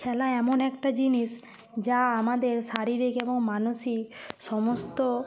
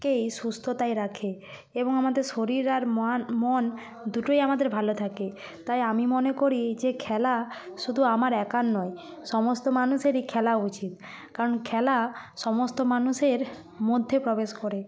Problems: constant background noise, background conversations at intervals